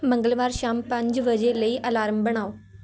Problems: none marked